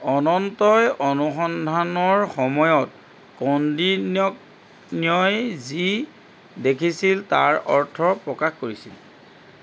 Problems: background sounds at intervals